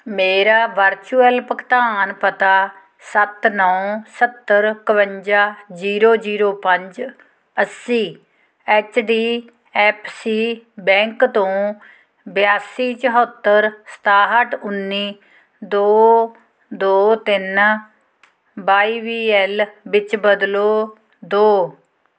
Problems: none marked